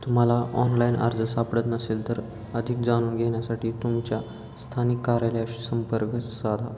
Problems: constant background noise, background conversations at intervals